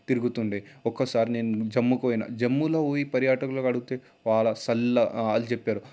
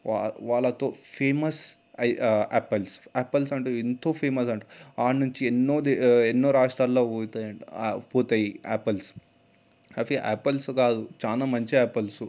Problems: background sounds at intervals